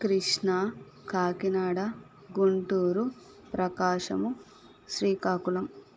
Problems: constant background noise